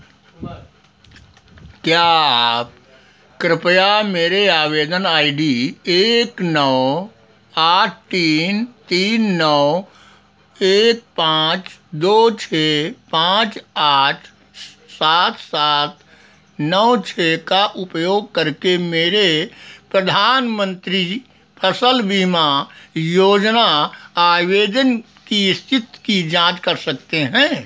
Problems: none marked